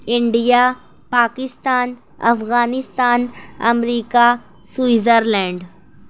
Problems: none marked